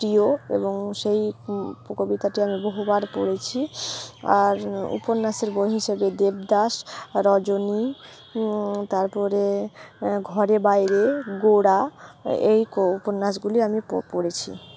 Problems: none marked